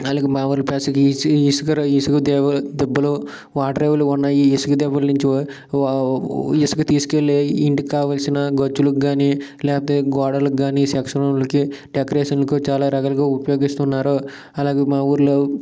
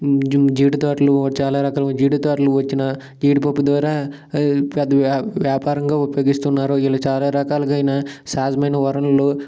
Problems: none marked